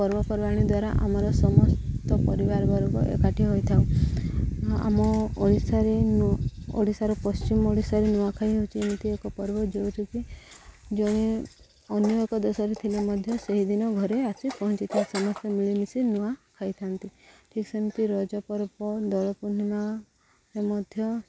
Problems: low volume